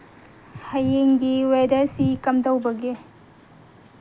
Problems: background sounds at intervals